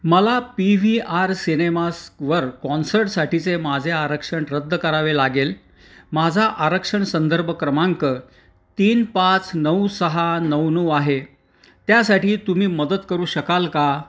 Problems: constant background noise